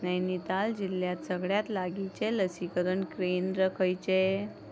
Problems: none marked